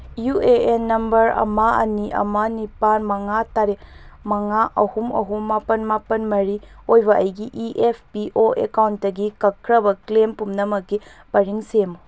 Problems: none marked